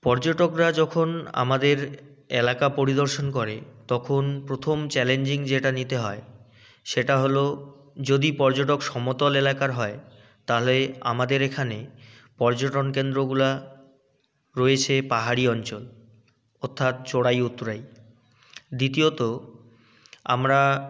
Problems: none marked